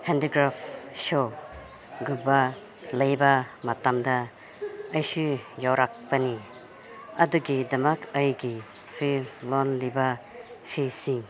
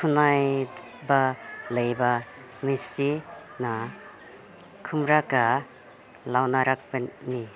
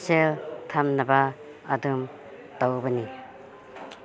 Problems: constant background noise